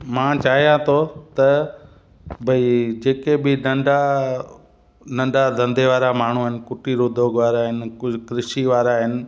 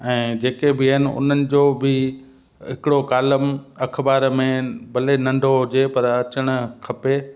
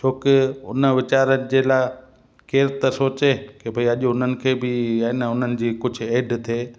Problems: constant background noise, echo